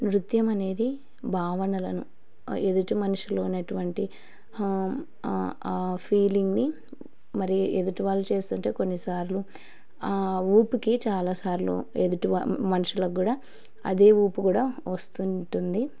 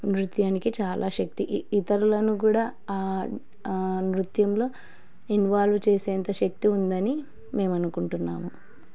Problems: none marked